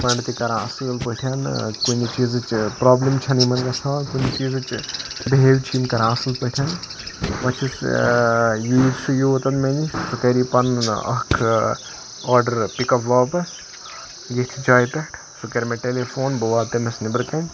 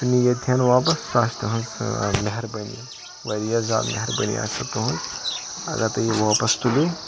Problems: constant background noise, background conversations at intervals